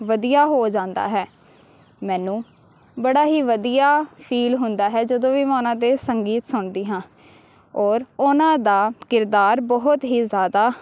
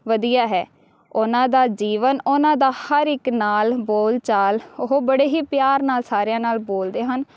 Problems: background sounds at intervals